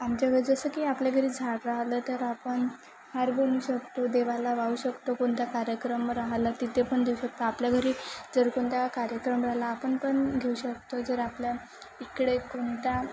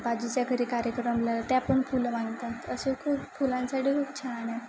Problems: constant background noise